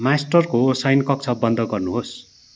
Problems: none marked